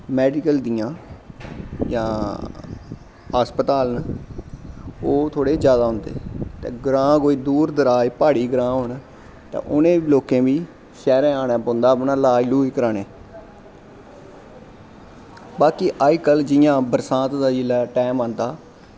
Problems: constant background noise